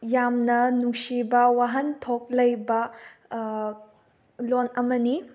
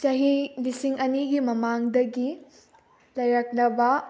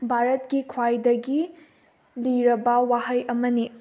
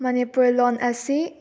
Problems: background sounds at intervals